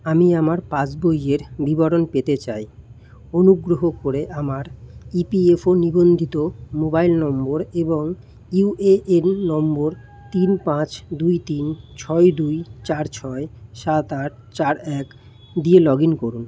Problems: constant background noise, background conversations at intervals